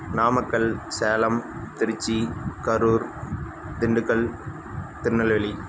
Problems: constant background noise